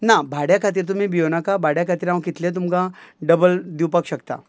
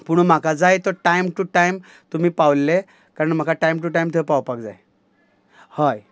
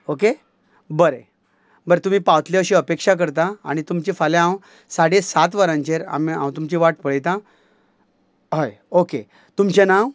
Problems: none marked